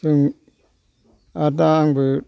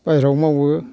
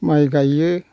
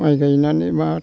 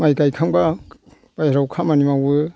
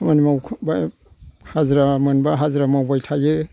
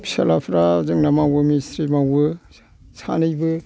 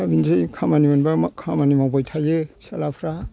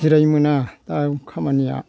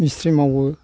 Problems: background sounds at intervals